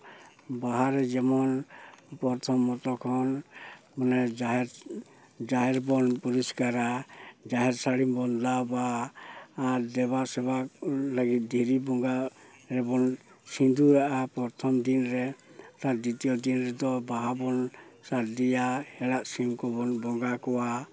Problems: constant background noise